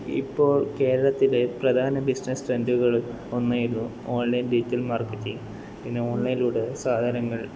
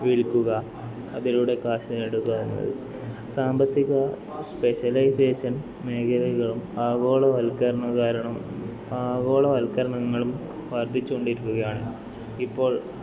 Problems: background sounds at intervals, continuous background conversations, low volume